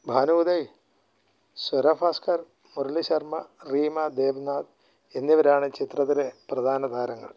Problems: low volume